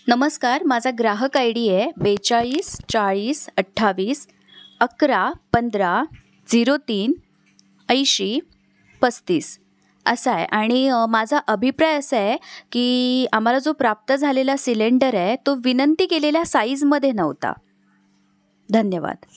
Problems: background sounds at intervals